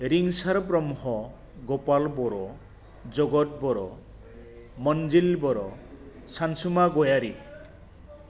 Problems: constant background noise